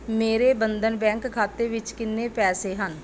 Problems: background sounds at intervals